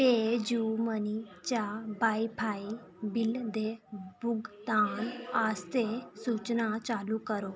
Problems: none marked